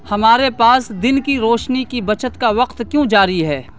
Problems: constant background noise